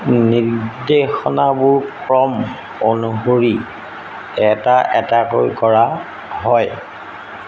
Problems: constant background noise